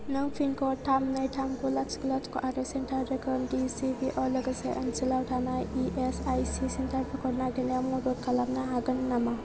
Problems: constant background noise